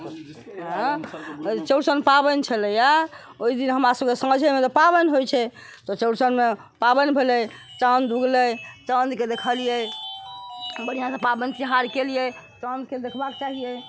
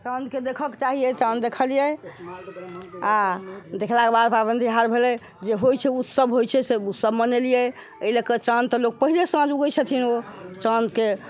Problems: constant background noise, background conversations at intervals